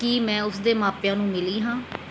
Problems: background sounds at intervals